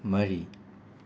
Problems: none marked